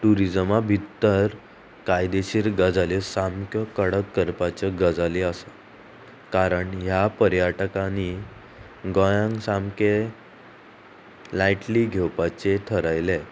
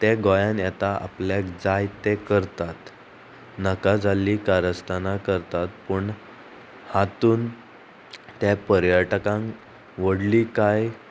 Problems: constant background noise